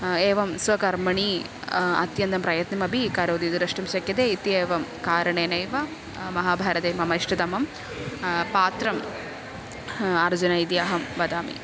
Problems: constant background noise